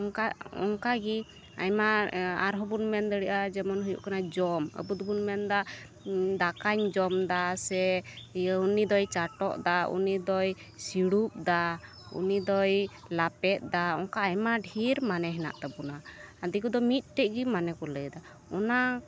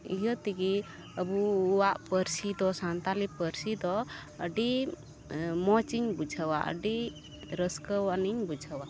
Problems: background sounds at intervals